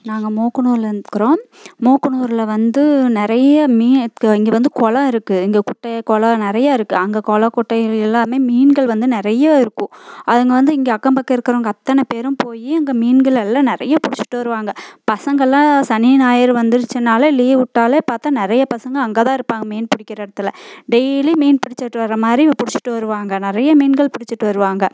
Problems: constant background noise